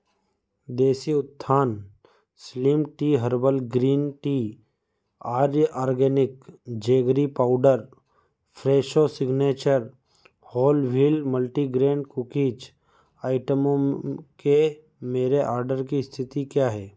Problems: background sounds at intervals